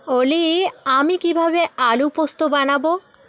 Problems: continuous background conversations